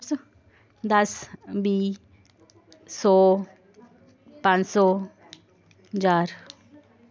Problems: constant background noise